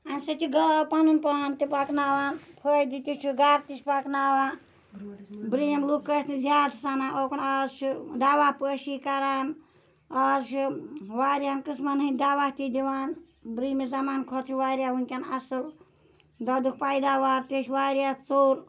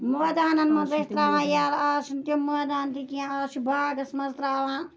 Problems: none marked